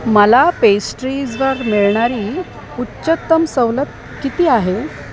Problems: constant background noise, background conversations at intervals